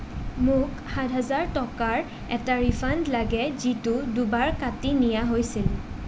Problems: constant background noise